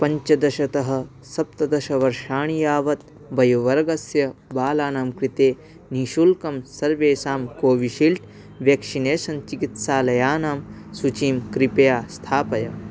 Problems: none marked